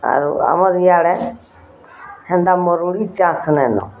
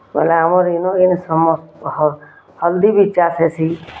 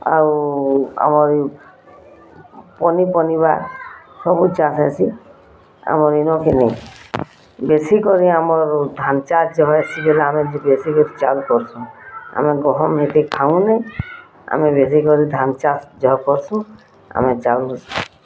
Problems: none marked